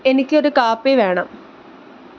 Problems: constant background noise